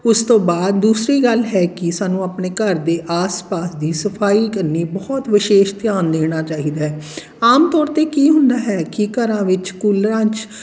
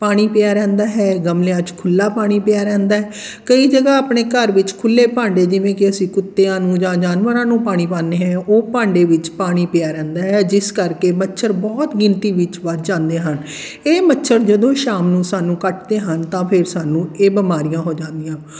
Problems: background conversations at intervals